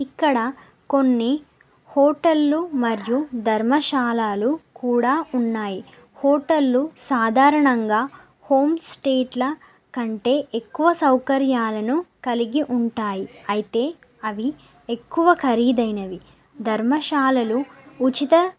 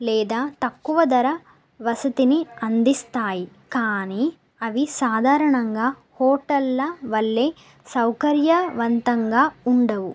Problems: none marked